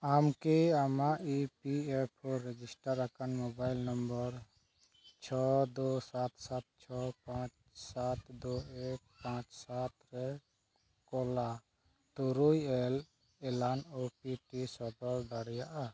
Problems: none marked